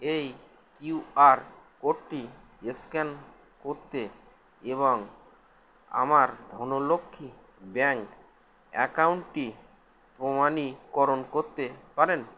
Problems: none marked